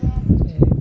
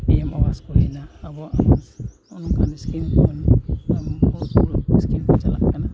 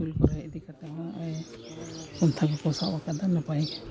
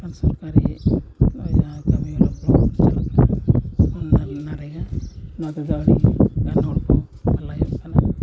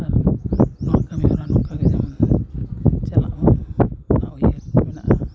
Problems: background sounds at intervals, background conversations at intervals, low volume